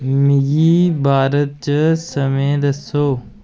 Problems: constant background noise